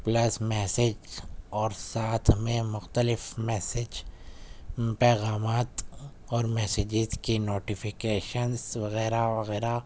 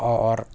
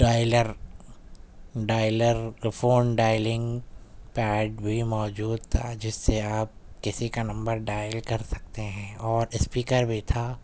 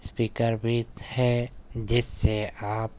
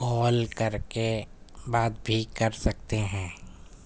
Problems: none marked